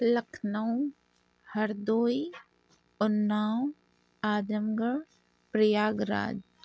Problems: none marked